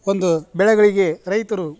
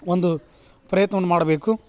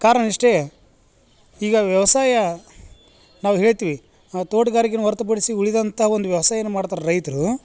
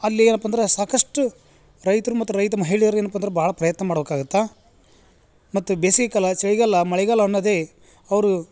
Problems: none marked